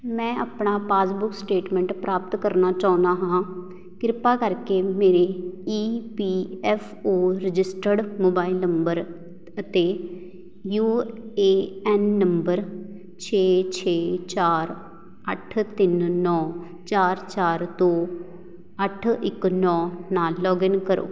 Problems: background sounds at intervals